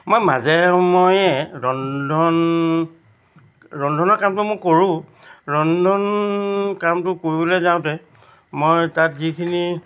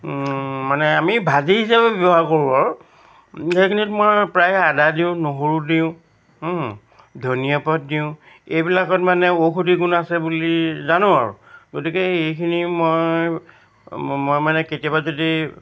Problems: none marked